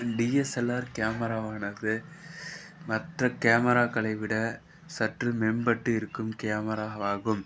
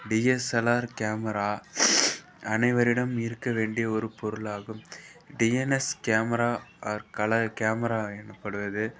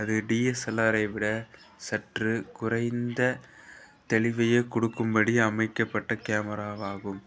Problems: background sounds at intervals, background conversations at intervals